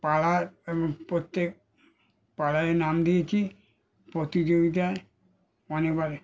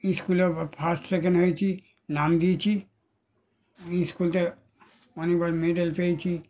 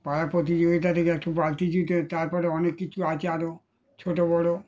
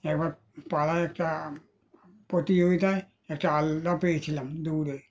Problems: background sounds at intervals